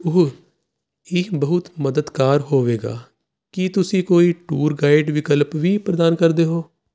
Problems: constant background noise